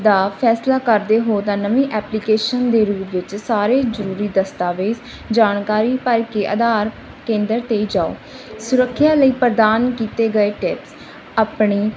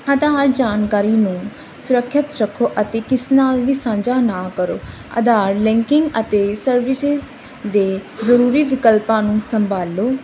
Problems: none marked